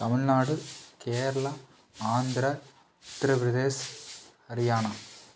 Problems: background sounds at intervals